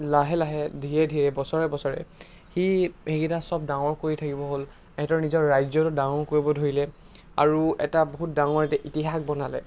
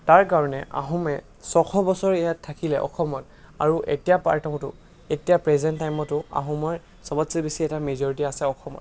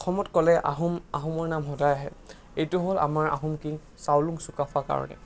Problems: constant background noise